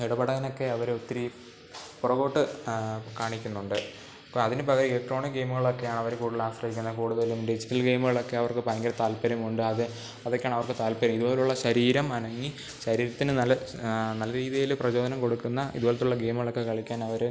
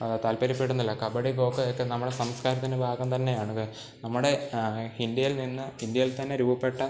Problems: none marked